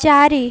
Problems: none marked